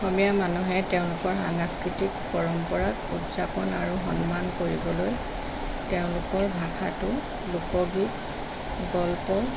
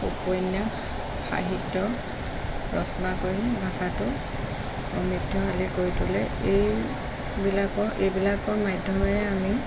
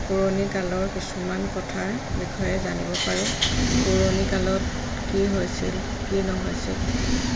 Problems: none marked